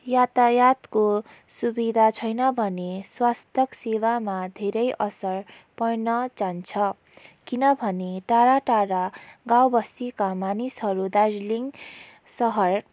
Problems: background sounds at intervals